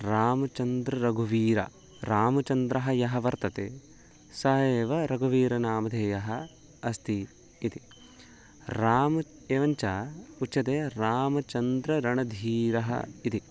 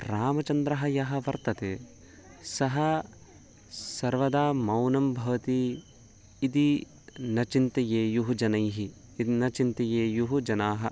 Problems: none marked